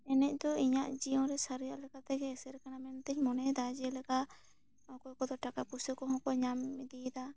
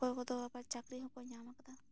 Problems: none marked